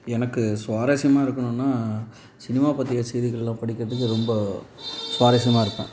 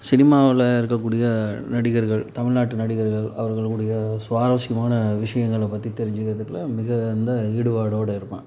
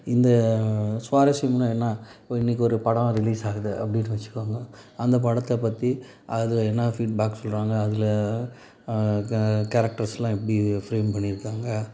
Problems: background sounds at intervals